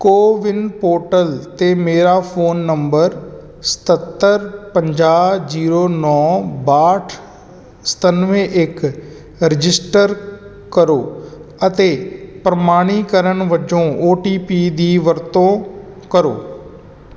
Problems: none marked